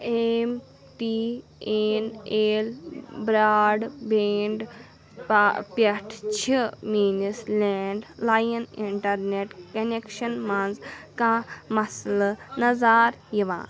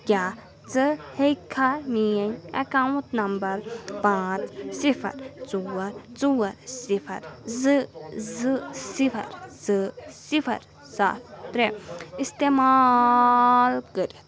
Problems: continuous background conversations